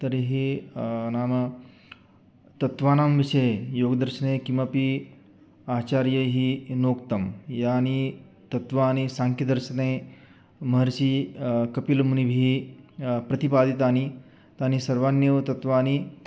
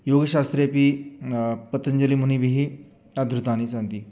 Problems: background sounds at intervals